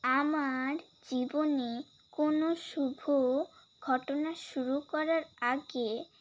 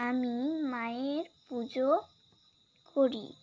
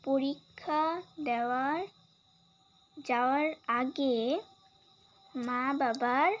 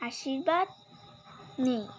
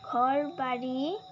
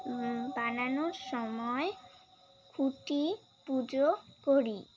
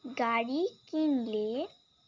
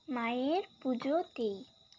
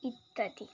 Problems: constant background noise